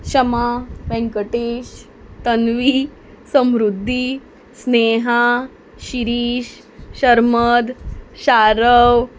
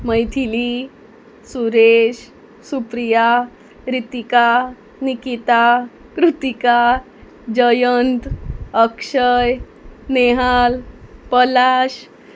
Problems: background sounds at intervals